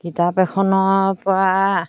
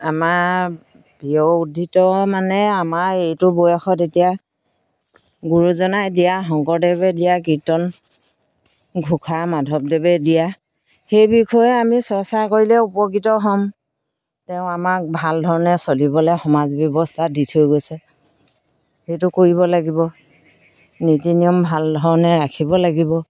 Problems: none marked